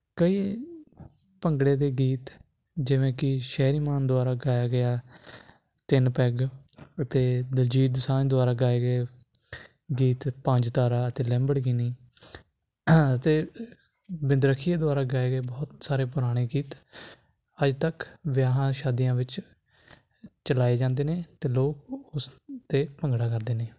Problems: constant background noise